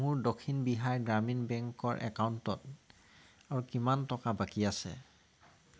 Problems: background sounds at intervals